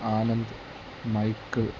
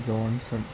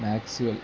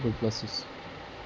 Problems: constant background noise